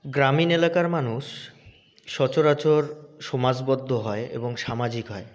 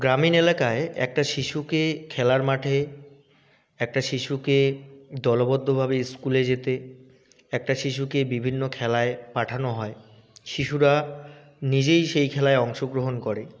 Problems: none marked